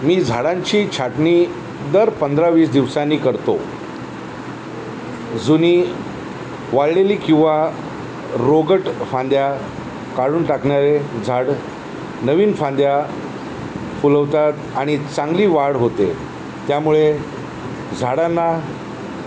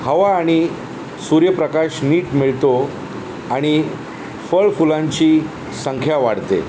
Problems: constant background noise